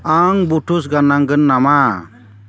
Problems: constant background noise